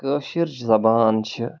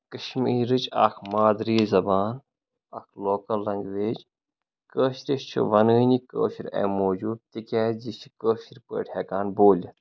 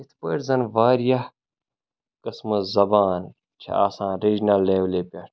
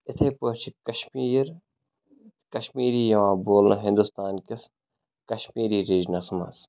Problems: background sounds at intervals